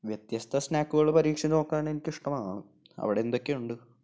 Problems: low volume